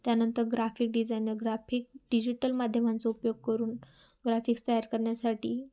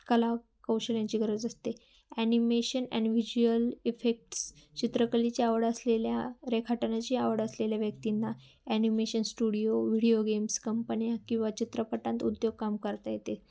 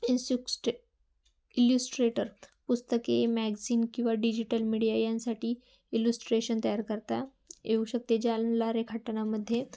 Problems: constant background noise, background conversations at intervals